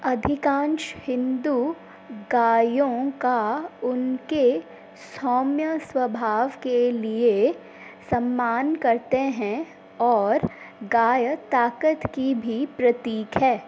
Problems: constant background noise